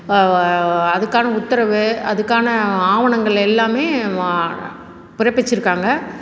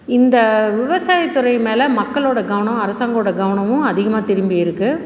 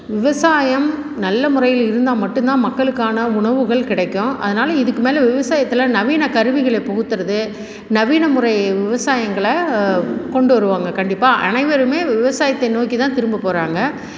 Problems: background sounds at intervals